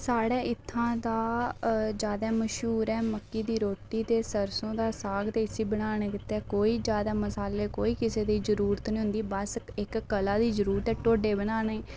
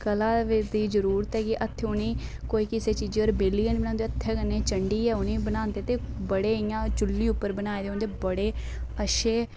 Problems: background sounds at intervals